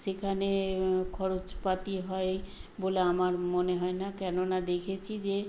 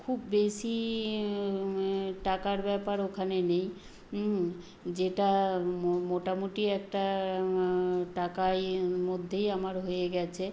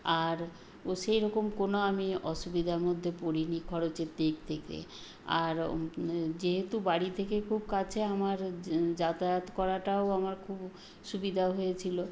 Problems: none marked